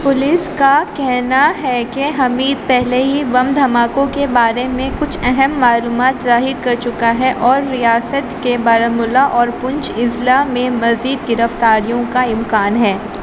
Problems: constant background noise